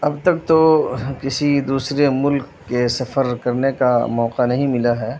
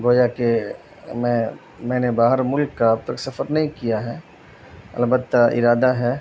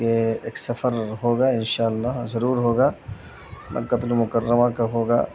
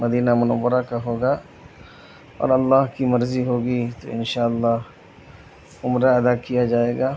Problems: constant background noise